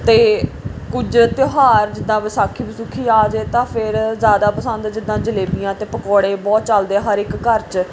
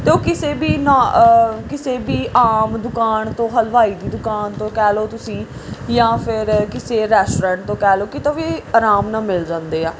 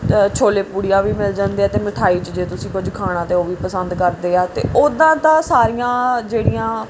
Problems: background sounds at intervals